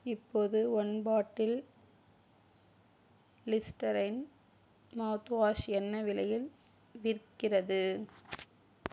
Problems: none marked